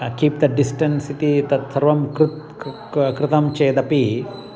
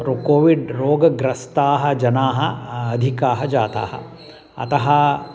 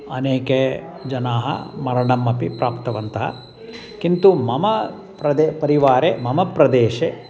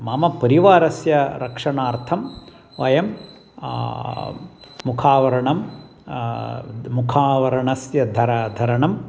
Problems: constant background noise